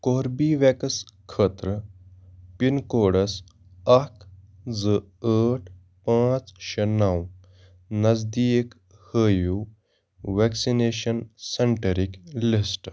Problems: none marked